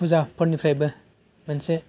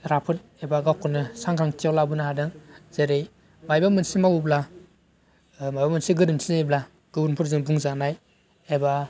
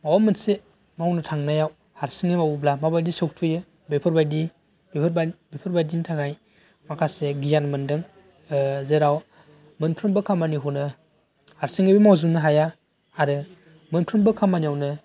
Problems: none marked